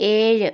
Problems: none marked